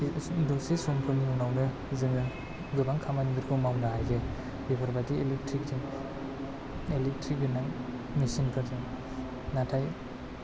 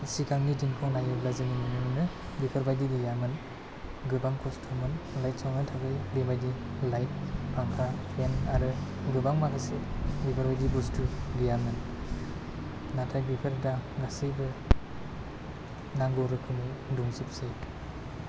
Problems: low volume